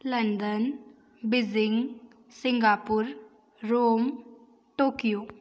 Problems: none marked